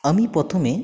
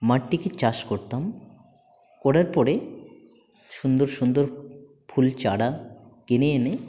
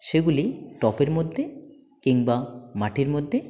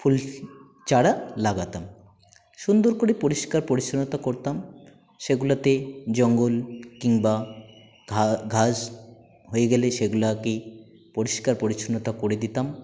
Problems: none marked